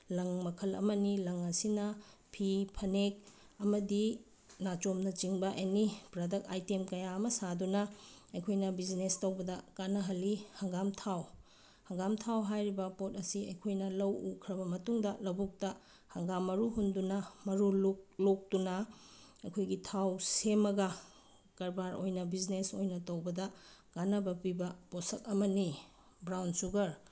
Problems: none marked